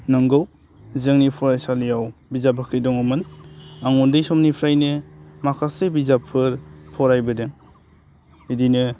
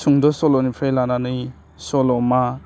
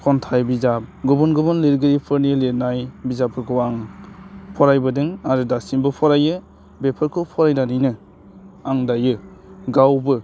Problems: low volume